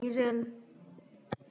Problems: echo